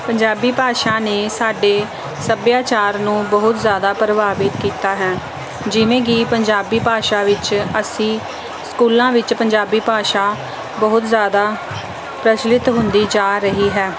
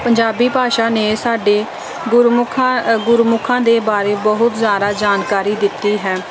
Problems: none marked